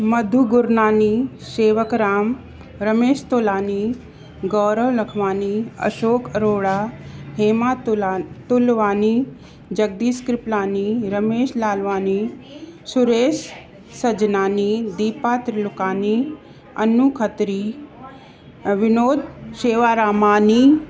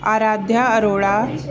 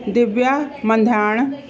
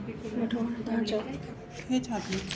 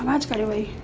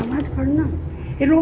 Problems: constant background noise, background conversations at intervals, echo